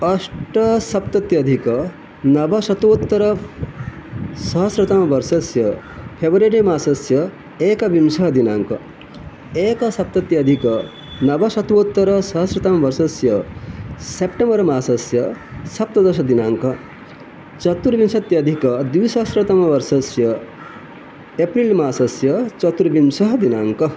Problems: constant background noise